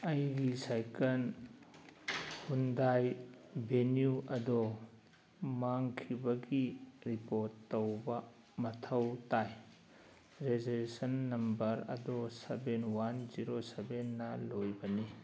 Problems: background conversations at intervals